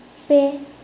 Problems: background sounds at intervals, echo